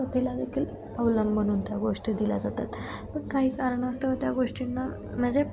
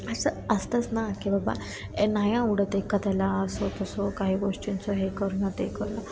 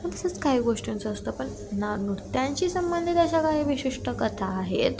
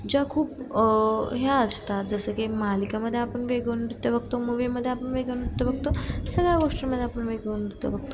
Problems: constant background noise